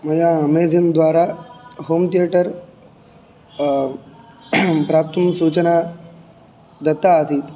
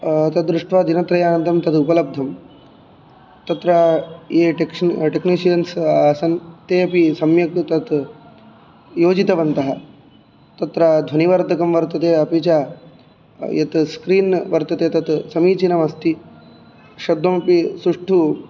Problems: background sounds at intervals